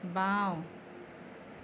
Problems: constant background noise